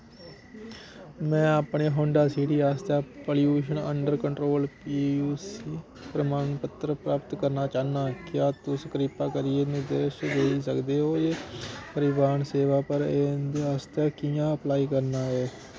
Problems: constant background noise